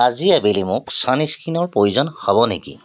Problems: background sounds at intervals